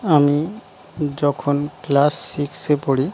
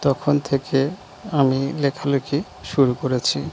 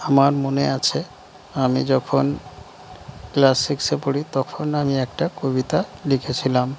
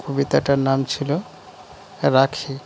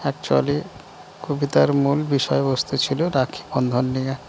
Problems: constant background noise